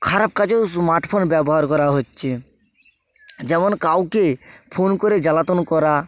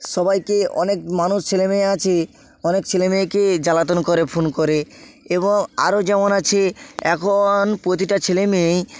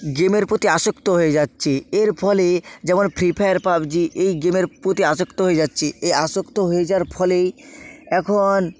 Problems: constant background noise